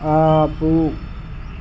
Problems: constant background noise